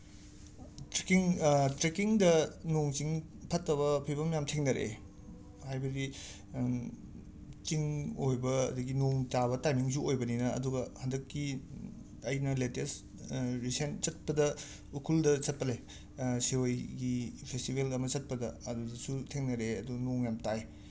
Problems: none marked